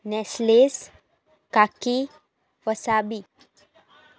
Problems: background sounds at intervals, background conversations at intervals